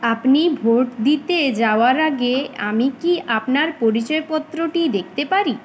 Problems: constant background noise